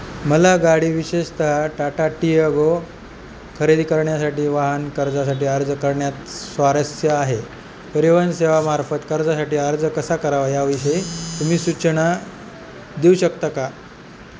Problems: constant background noise